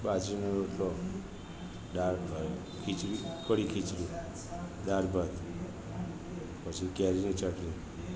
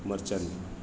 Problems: constant background noise